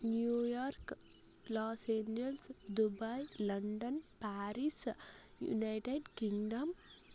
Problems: low volume